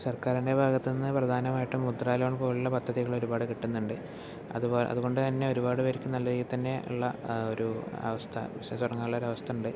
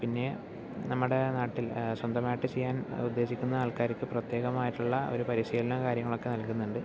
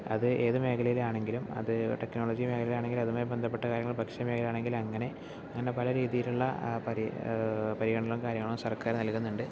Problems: low volume